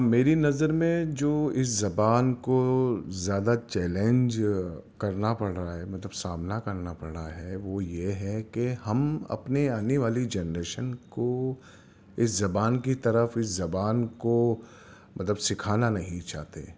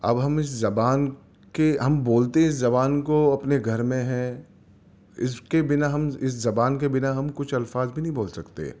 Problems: none marked